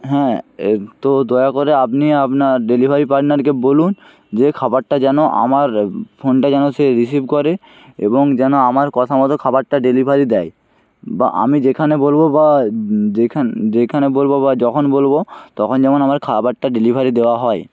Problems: constant background noise